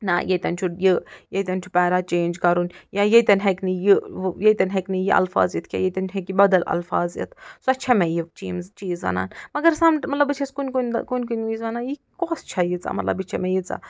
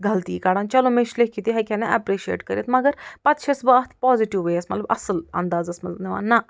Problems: none marked